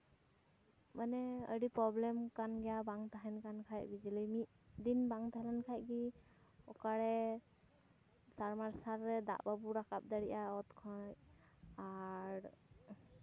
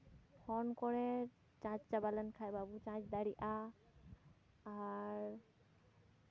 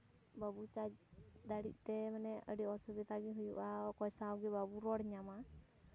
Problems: background sounds at intervals, continuous background conversations